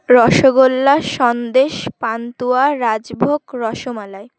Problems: constant background noise